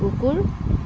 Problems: none marked